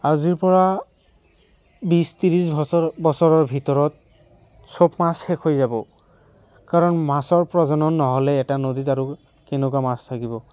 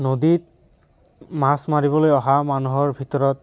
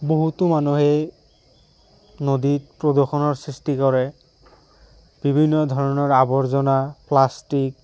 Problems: none marked